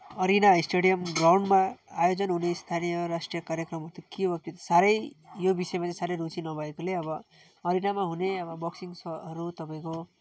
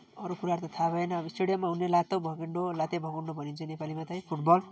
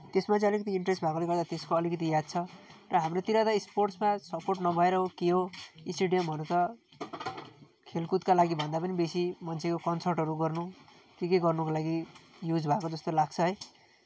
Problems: none marked